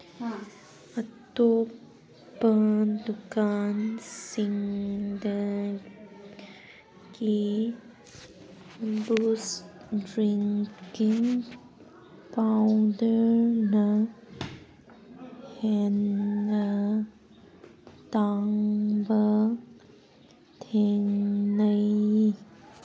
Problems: background sounds at intervals